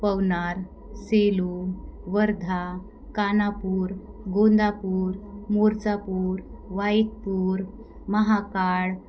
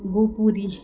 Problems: background sounds at intervals